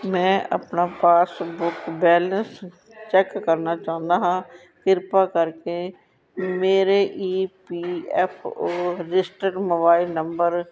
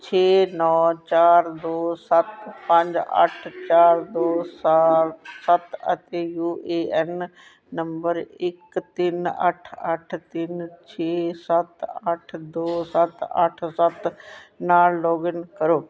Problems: constant background noise, background conversations at intervals